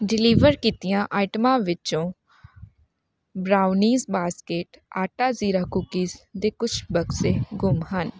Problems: background sounds at intervals